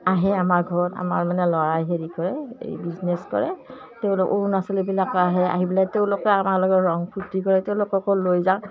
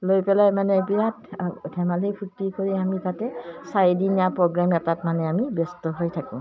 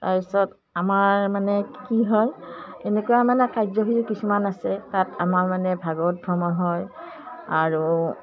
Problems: none marked